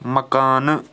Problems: constant background noise